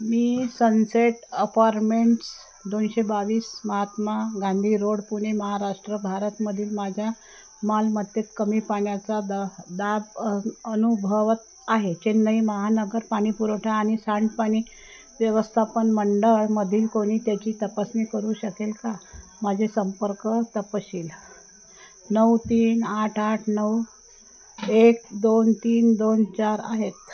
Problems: none marked